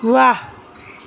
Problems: background sounds at intervals